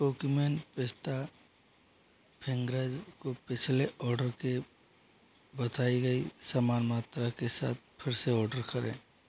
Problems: none marked